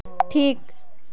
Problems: none marked